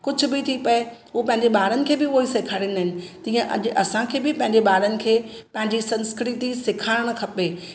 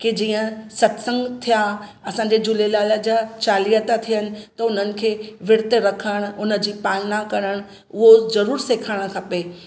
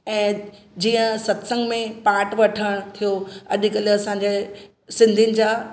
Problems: constant background noise, echo